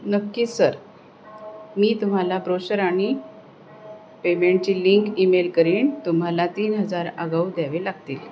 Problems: constant background noise